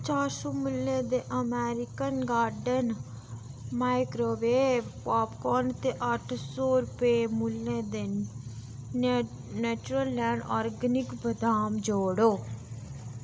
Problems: none marked